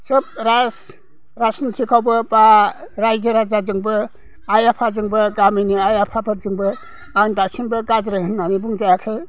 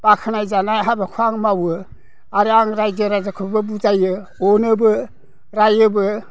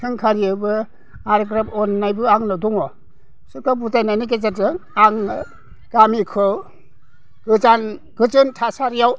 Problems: none marked